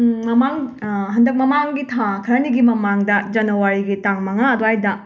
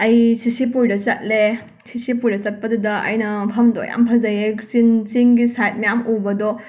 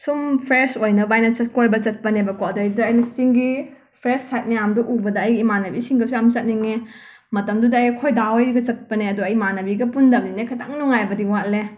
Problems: none marked